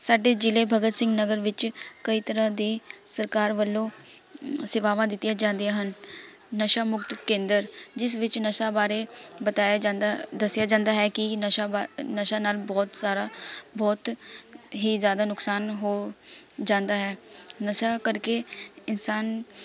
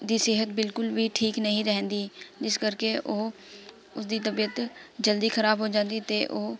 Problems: constant background noise, continuous background conversations